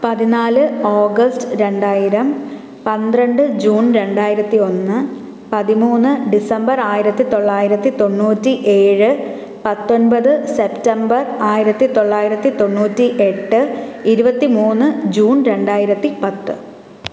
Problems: background sounds at intervals